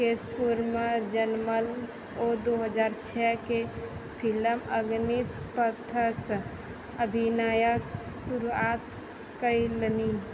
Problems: none marked